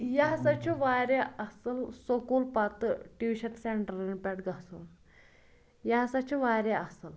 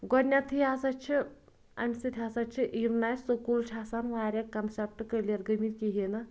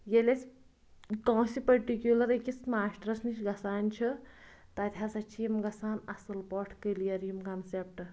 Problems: background sounds at intervals